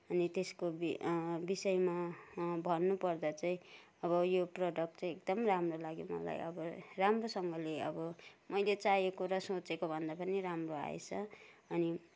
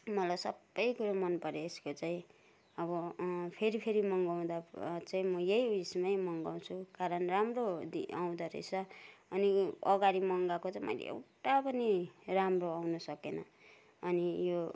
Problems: none marked